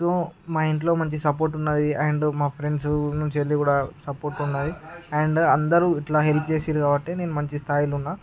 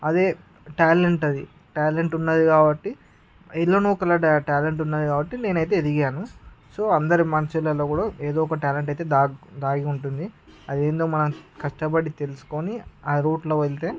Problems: background conversations at intervals